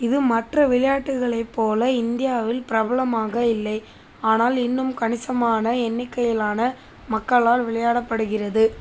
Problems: constant background noise